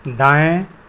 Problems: none marked